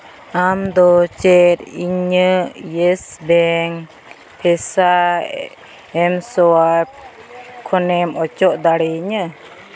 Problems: constant background noise